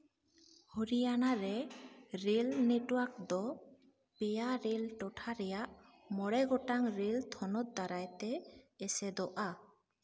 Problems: background sounds at intervals, echo